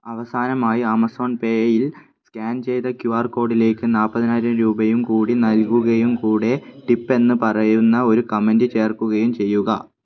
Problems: none marked